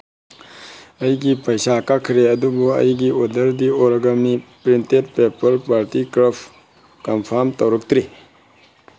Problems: constant background noise